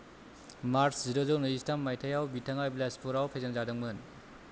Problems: none marked